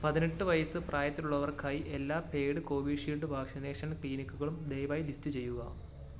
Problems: none marked